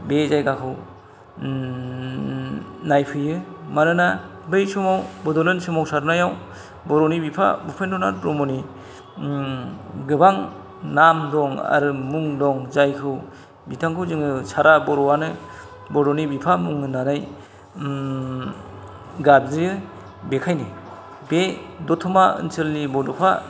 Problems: none marked